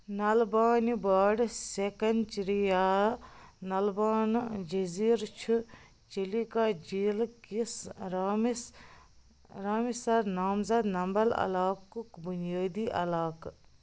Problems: low volume